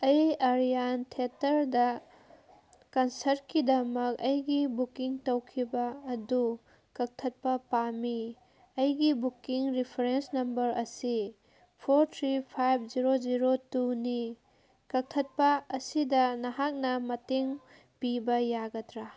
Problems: background sounds at intervals